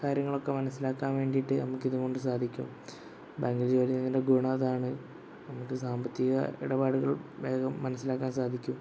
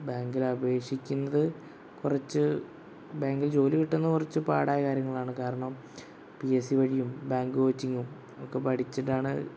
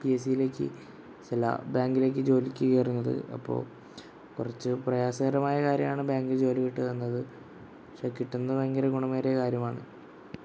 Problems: constant background noise